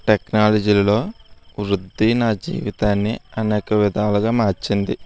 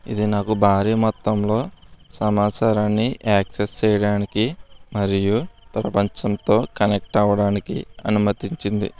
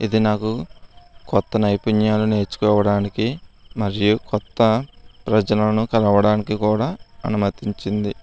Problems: constant background noise